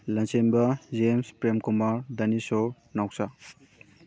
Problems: background conversations at intervals